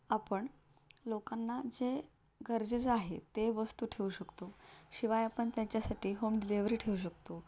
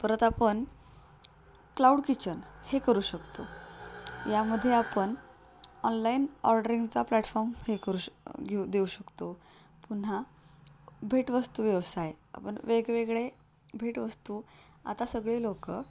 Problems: constant background noise